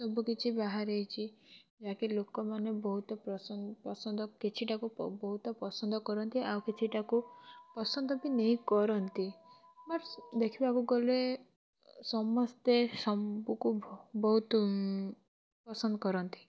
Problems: none marked